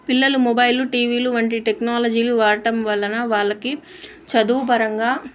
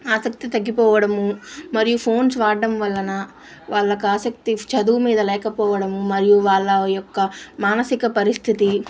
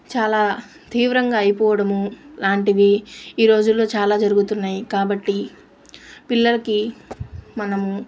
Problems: constant background noise